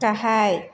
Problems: constant background noise